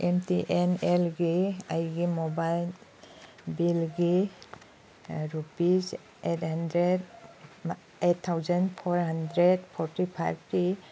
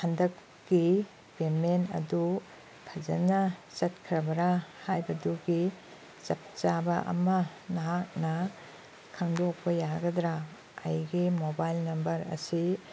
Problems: background sounds at intervals